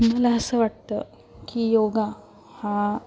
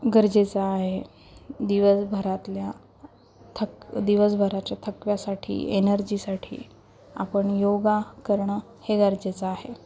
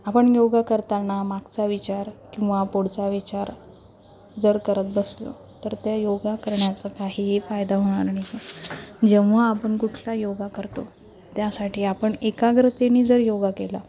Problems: constant background noise, background conversations at intervals, low volume